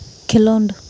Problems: none marked